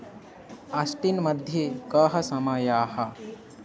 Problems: constant background noise, continuous background conversations